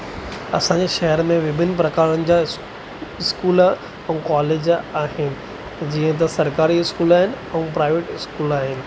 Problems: constant background noise